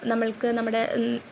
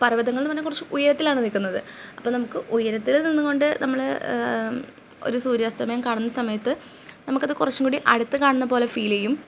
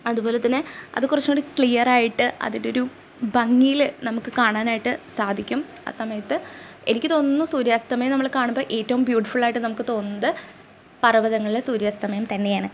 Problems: none marked